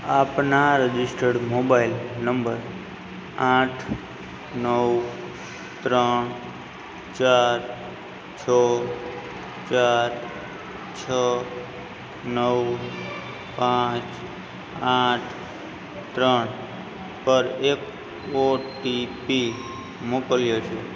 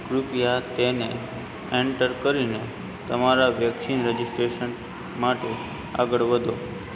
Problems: constant background noise, background conversations at intervals